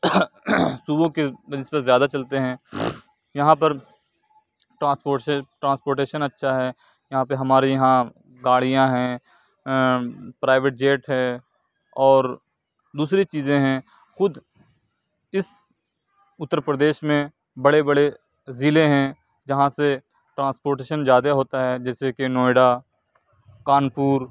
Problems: background sounds at intervals